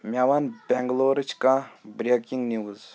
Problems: continuous background conversations